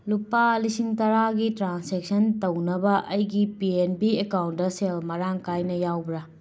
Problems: background sounds at intervals